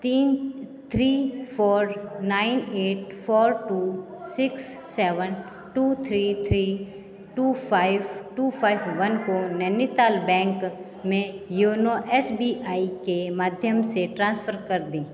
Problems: constant background noise, continuous background conversations